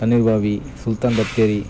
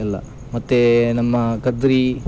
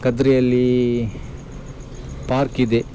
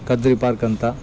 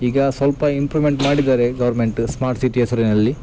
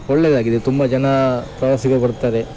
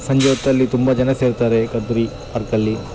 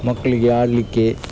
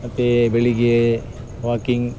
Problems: none marked